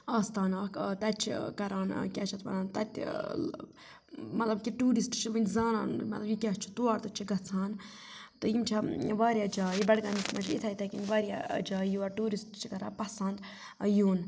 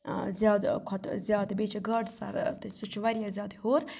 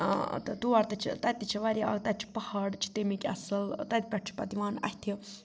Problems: none marked